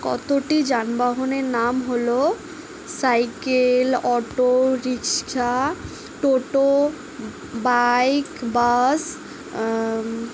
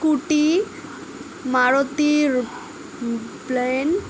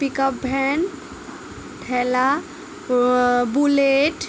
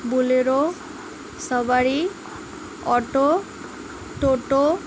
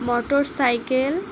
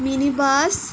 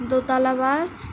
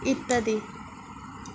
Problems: none marked